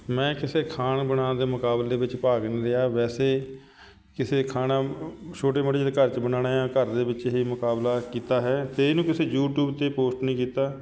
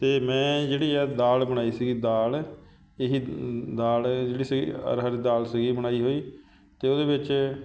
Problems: background sounds at intervals